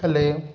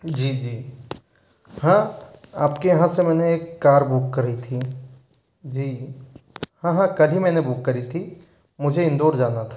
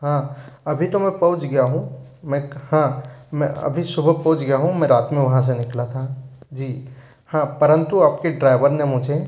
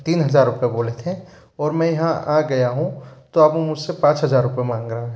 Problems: background sounds at intervals